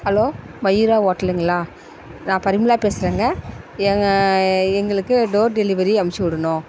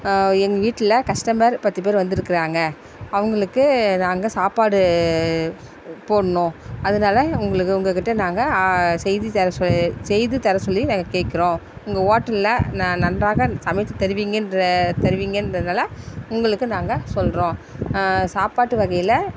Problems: constant background noise